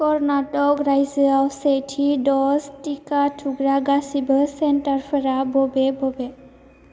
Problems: none marked